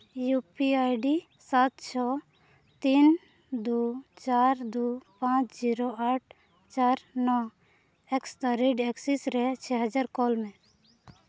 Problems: background sounds at intervals, background conversations at intervals